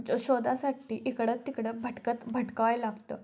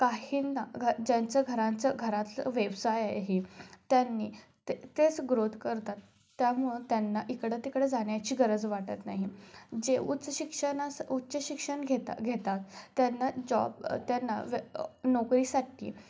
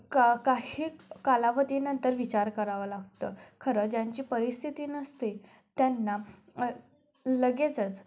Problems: none marked